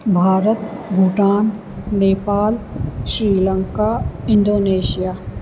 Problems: constant background noise, echo